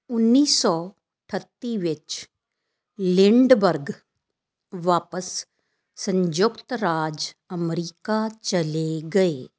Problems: none marked